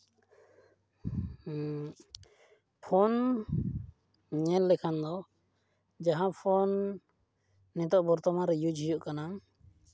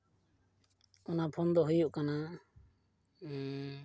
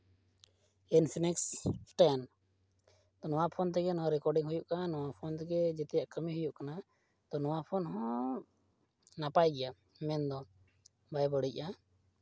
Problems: none marked